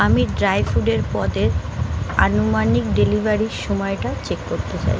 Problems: constant background noise